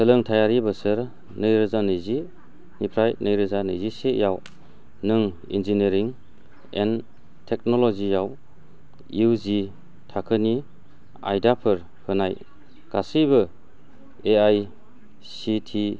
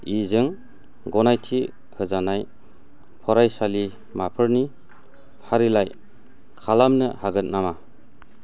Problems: low volume